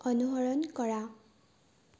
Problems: low volume